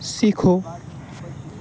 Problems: constant background noise